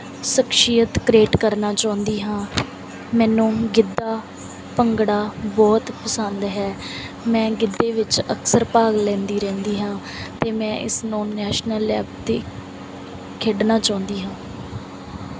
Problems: background sounds at intervals